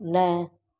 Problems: none marked